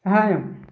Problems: constant background noise